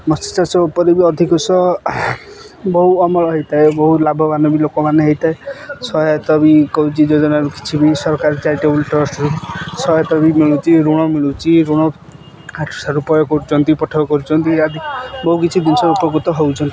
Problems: constant background noise, continuous background conversations